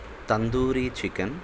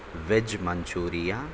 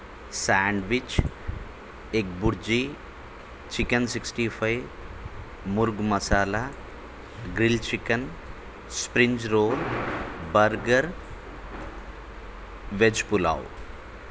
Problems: constant background noise